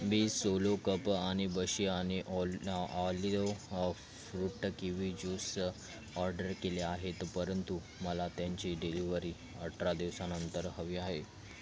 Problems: constant background noise, continuous background conversations